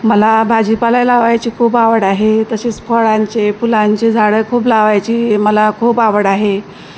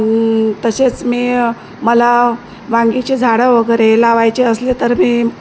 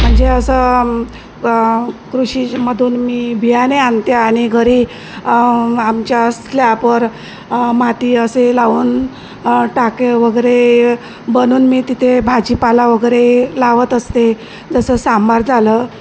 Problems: none marked